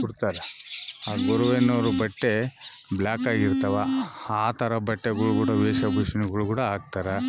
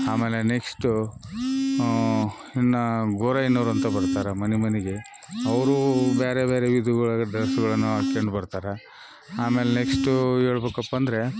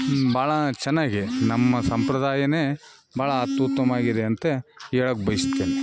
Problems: background sounds at intervals